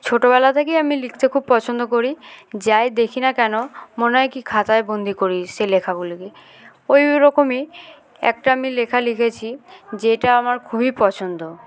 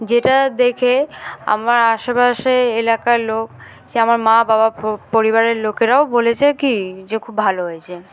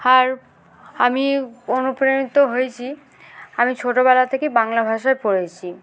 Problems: background sounds at intervals